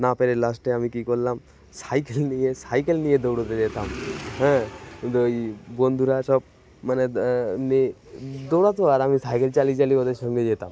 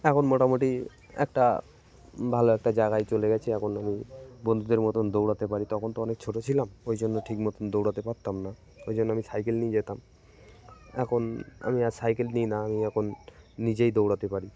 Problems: continuous background conversations